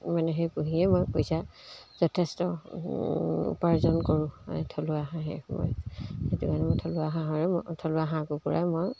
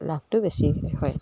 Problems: constant background noise